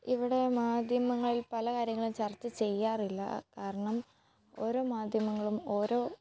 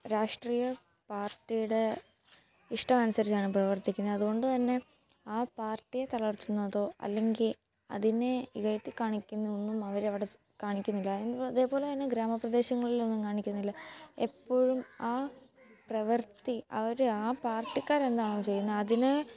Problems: background sounds at intervals, low volume